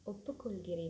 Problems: low volume